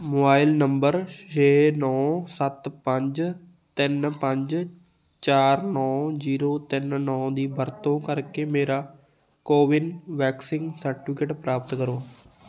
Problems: continuous background conversations